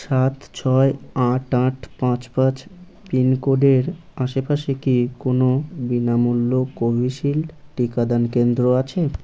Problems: none marked